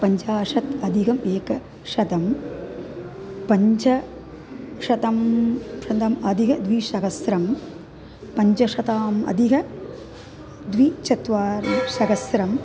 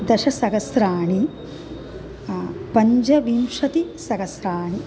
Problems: background sounds at intervals